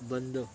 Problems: constant background noise, continuous background conversations